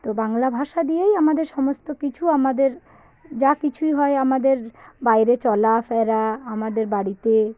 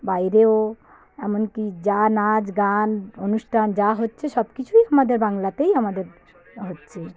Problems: constant background noise, background conversations at intervals